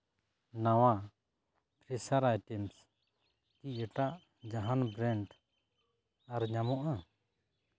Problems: background sounds at intervals